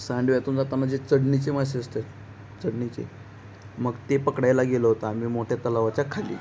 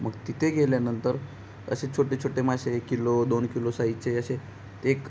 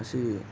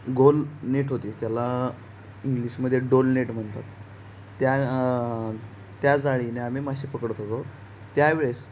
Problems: background sounds at intervals